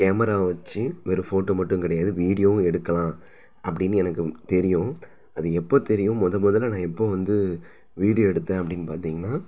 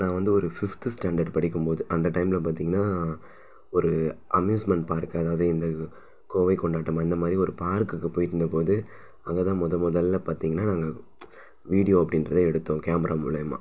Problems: none marked